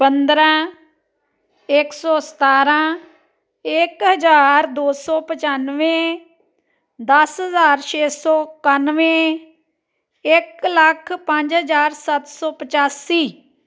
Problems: continuous background conversations